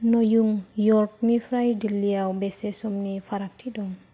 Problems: low volume